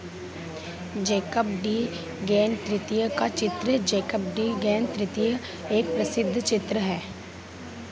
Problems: constant background noise